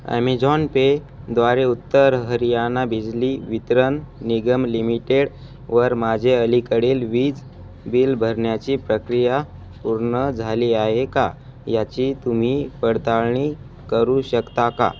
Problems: constant background noise